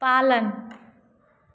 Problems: constant background noise, echo